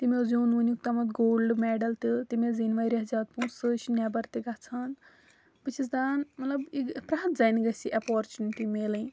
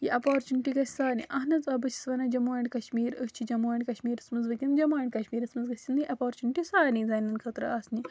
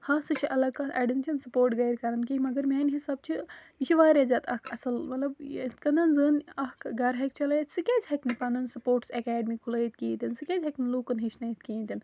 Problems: none marked